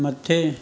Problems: constant background noise, echo